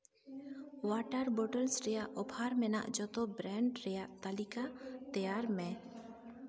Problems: none marked